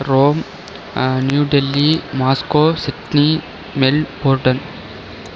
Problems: constant background noise